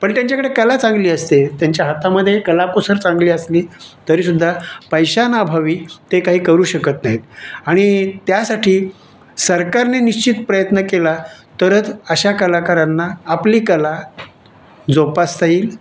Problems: none marked